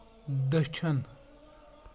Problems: none marked